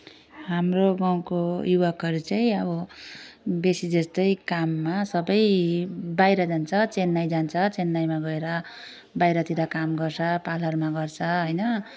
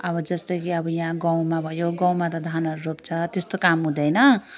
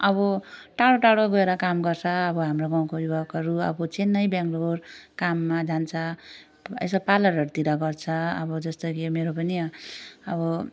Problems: none marked